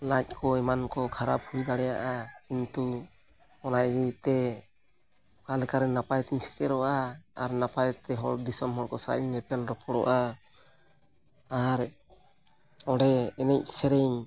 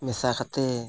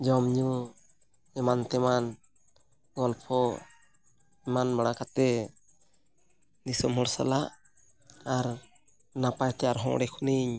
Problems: background sounds at intervals